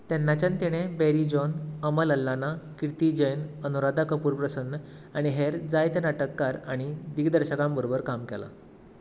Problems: none marked